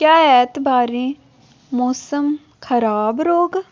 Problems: none marked